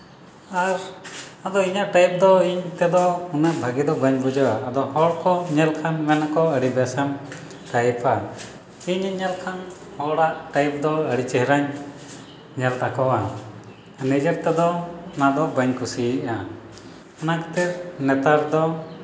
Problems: none marked